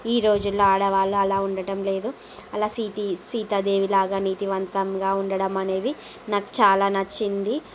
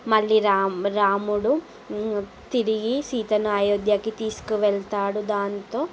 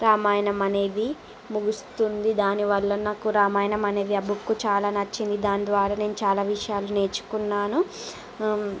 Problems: background sounds at intervals